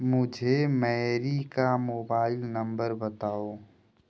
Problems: background sounds at intervals